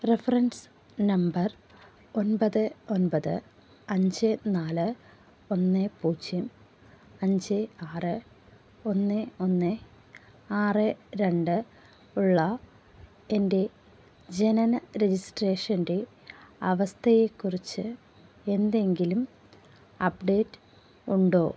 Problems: low volume